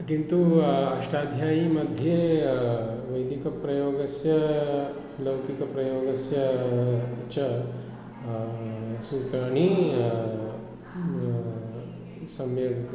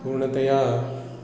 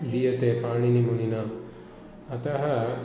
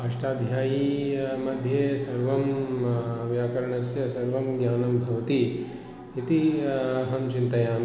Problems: none marked